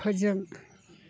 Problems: constant background noise